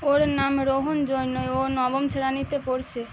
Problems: constant background noise